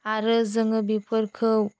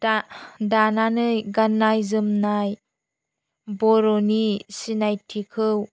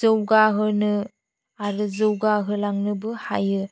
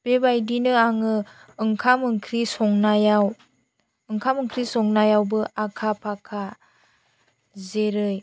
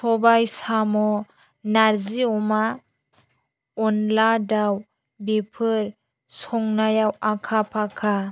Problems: none marked